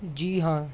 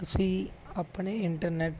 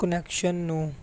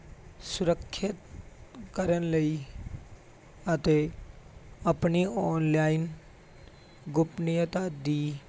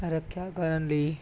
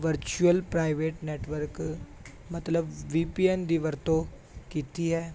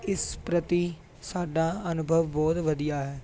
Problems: none marked